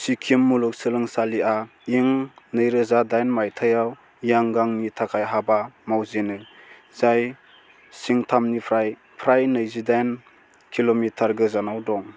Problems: constant background noise